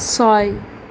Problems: none marked